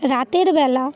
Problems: continuous background conversations